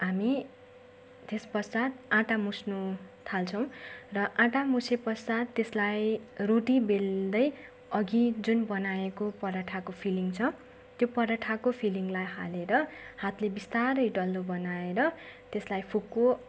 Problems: none marked